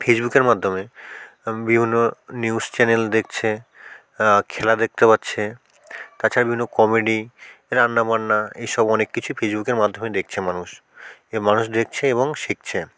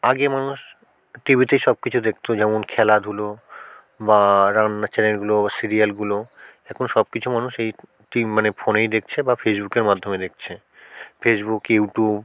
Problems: constant background noise, background conversations at intervals